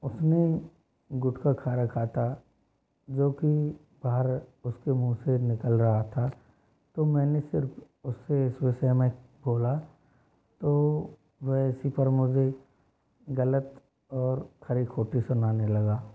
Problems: low volume